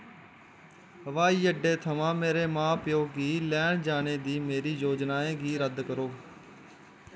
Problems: constant background noise